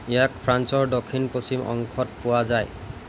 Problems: constant background noise